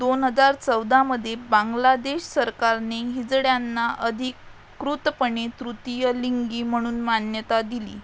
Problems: constant background noise